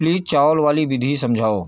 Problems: none marked